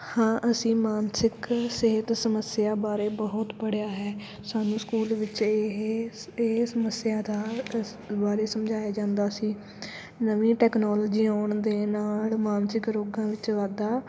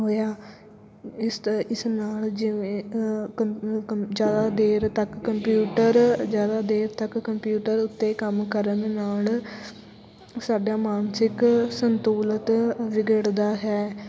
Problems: background sounds at intervals, background conversations at intervals